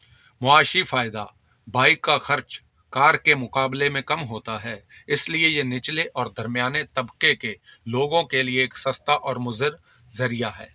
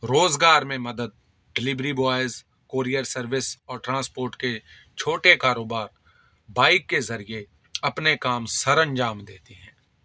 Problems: none marked